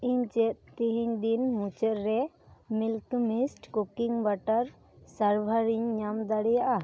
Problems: none marked